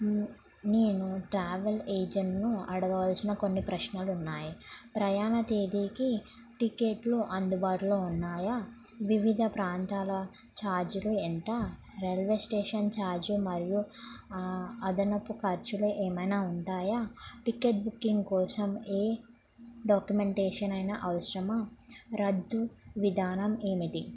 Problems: low volume